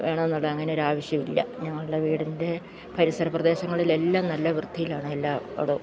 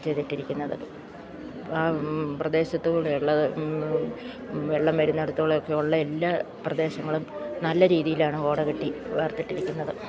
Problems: background sounds at intervals